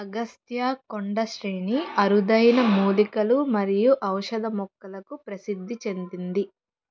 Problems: background sounds at intervals, low volume